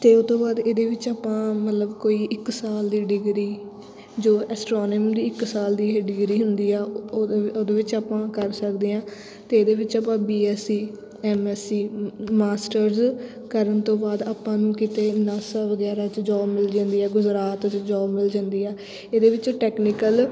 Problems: constant background noise